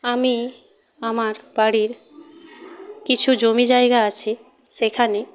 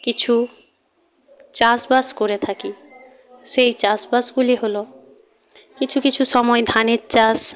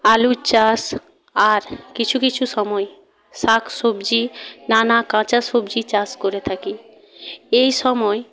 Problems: background conversations at intervals